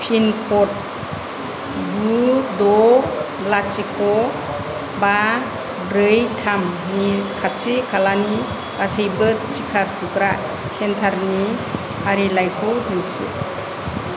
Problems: constant background noise, low volume